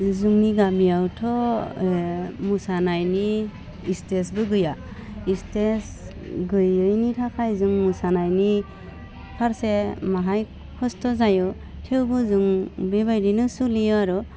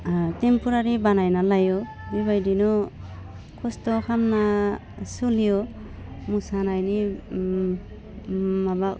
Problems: low volume